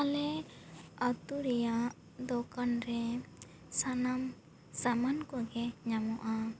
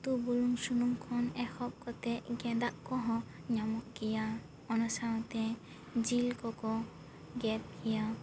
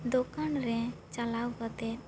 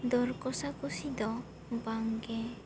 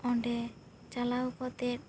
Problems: constant background noise